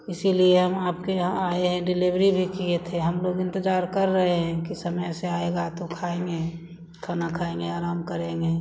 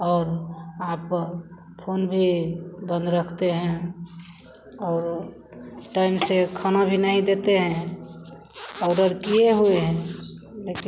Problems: none marked